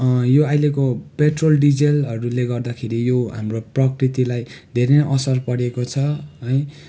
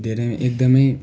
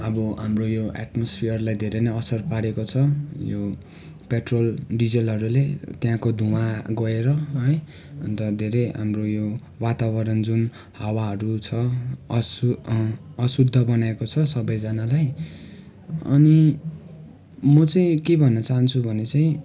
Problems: constant background noise, continuous background conversations